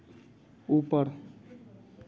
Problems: constant background noise, continuous background conversations